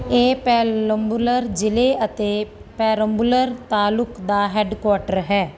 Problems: none marked